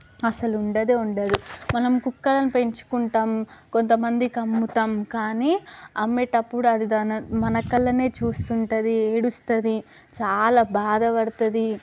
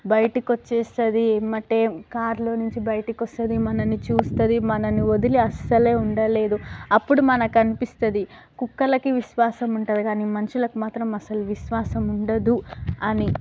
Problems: background sounds at intervals, background conversations at intervals